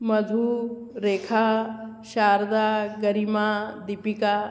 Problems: constant background noise, echo